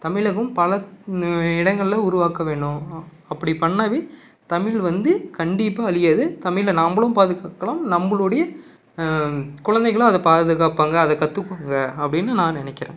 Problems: none marked